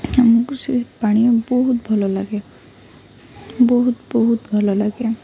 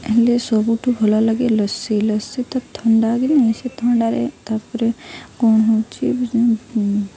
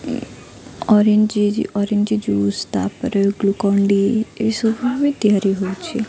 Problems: constant background noise, continuous background conversations